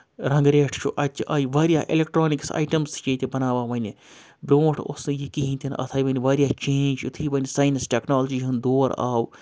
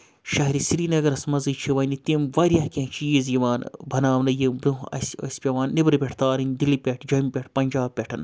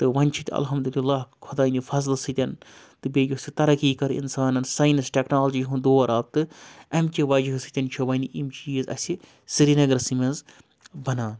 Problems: background sounds at intervals